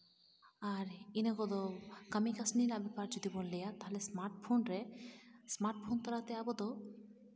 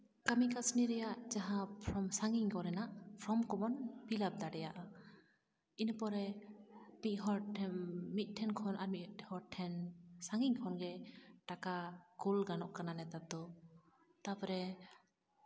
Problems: constant background noise